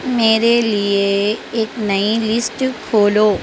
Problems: constant background noise